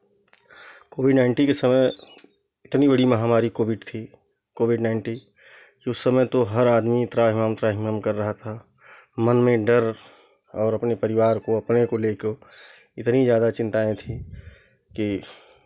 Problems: constant background noise